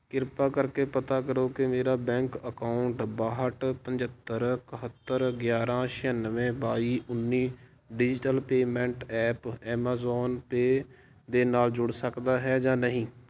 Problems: constant background noise